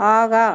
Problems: none marked